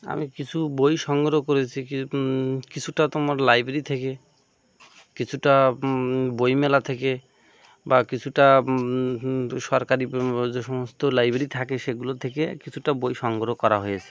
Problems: constant background noise